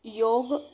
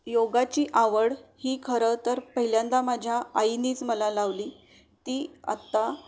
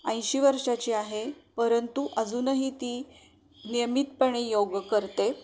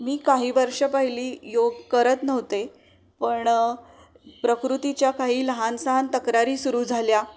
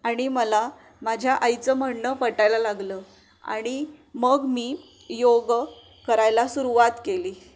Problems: none marked